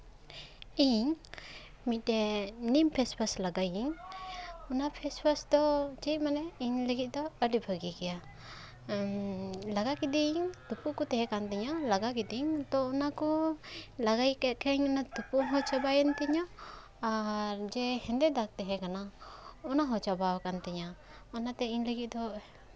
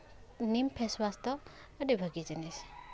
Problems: constant background noise